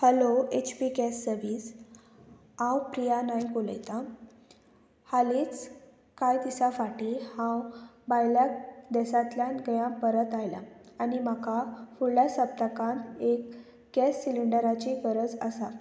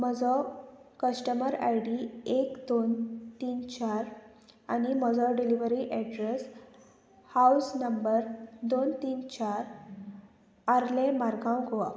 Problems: constant background noise